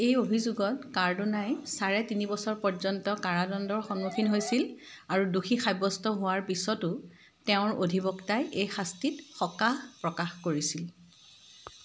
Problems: constant background noise